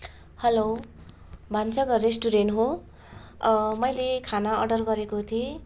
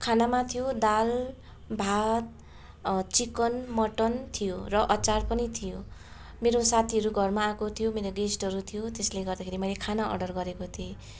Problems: constant background noise, continuous background conversations